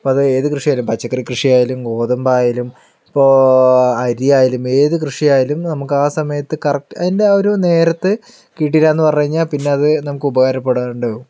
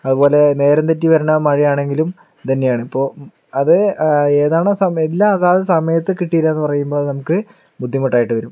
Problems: low volume